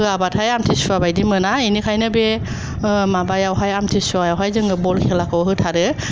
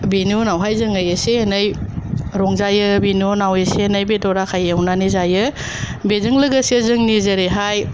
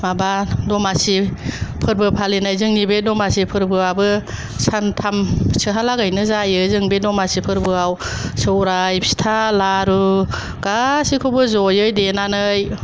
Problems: none marked